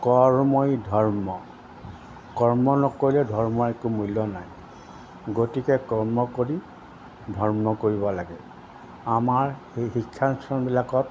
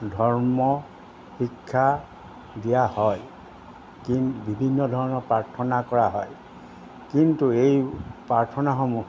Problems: constant background noise